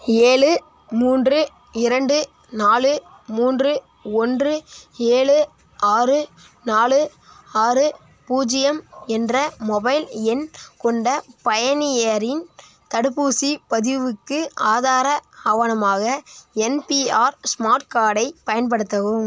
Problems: none marked